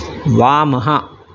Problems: constant background noise